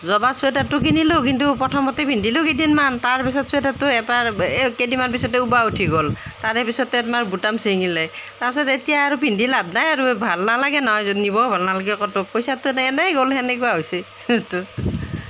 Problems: constant background noise